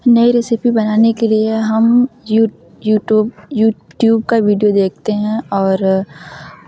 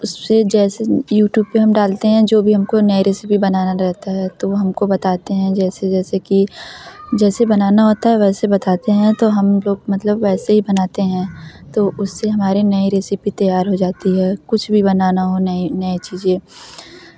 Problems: none marked